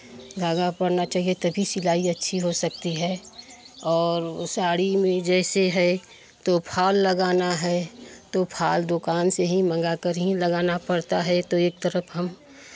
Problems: constant background noise, background conversations at intervals